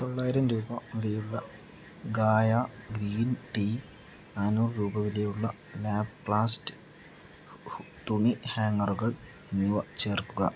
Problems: low volume